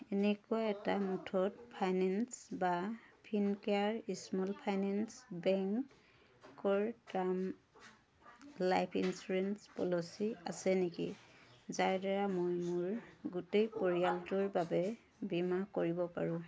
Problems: constant background noise